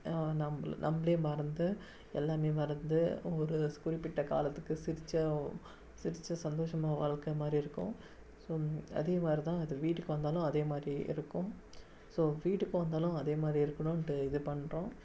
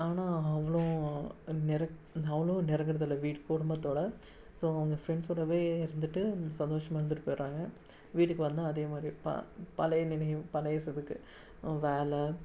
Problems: none marked